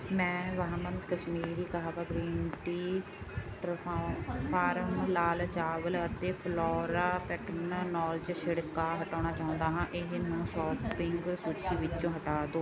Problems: constant background noise, background conversations at intervals